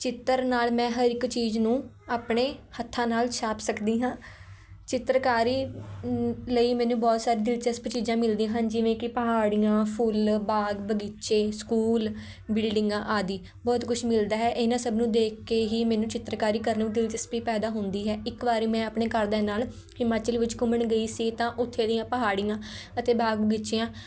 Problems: background sounds at intervals